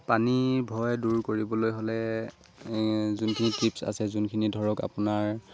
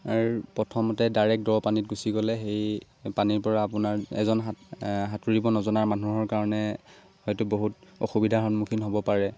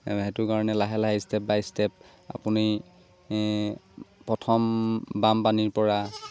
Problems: constant background noise